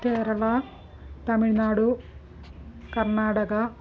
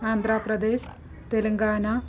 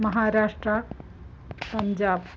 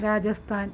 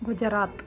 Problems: background sounds at intervals